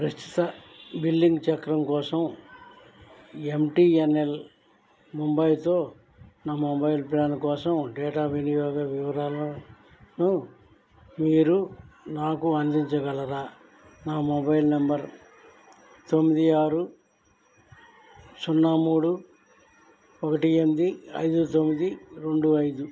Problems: low volume